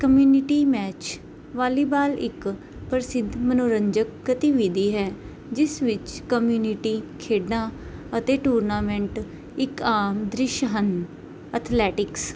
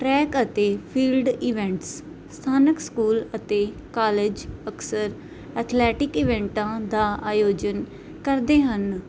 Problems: none marked